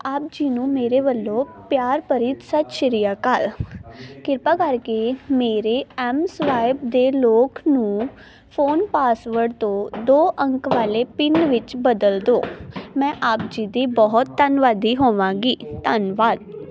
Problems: none marked